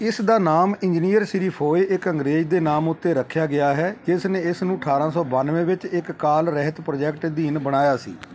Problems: background sounds at intervals